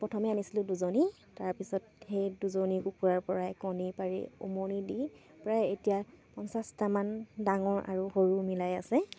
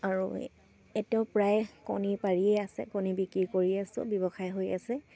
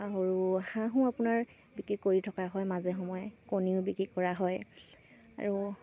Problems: none marked